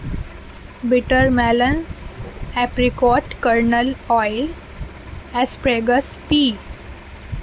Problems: constant background noise